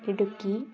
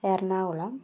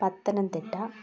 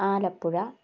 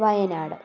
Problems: constant background noise